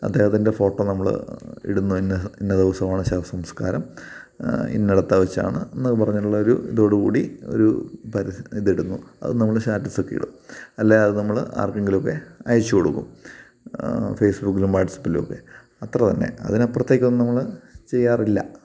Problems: background sounds at intervals